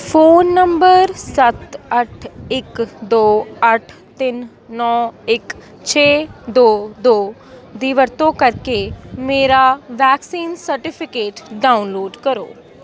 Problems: background sounds at intervals, continuous background conversations